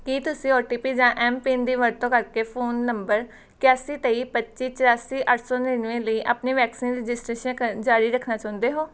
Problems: background sounds at intervals